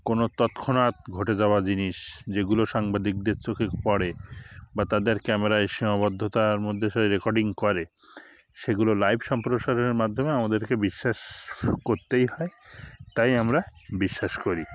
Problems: constant background noise, background conversations at intervals